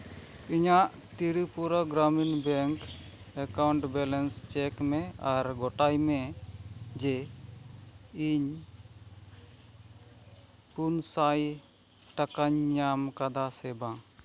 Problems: none marked